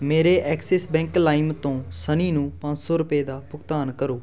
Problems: none marked